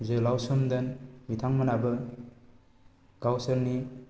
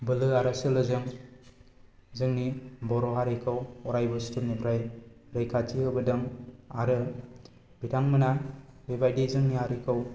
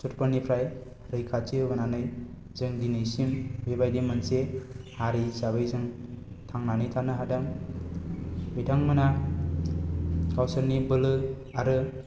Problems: constant background noise